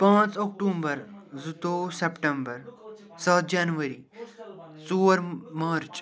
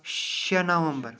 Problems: continuous background conversations